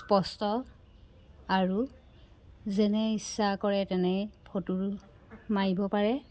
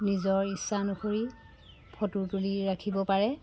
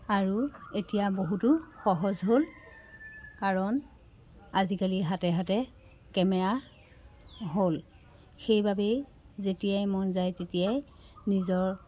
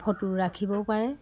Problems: constant background noise